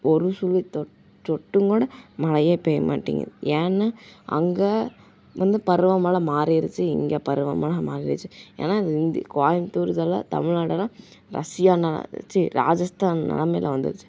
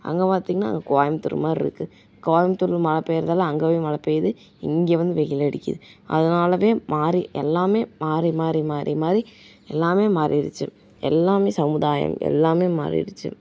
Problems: background sounds at intervals